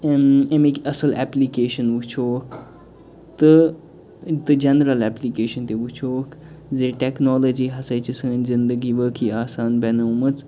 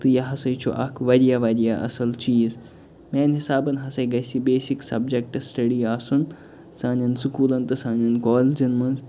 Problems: constant background noise